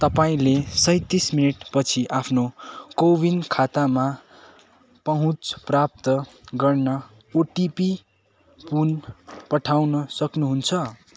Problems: constant background noise